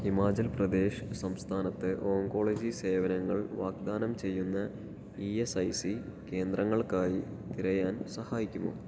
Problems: low volume